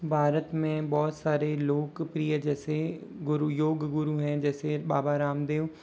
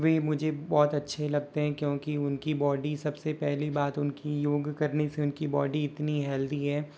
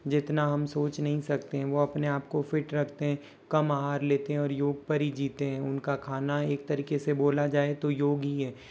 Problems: background sounds at intervals